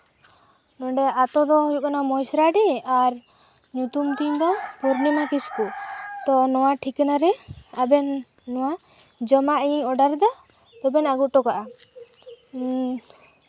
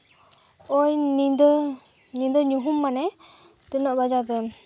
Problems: constant background noise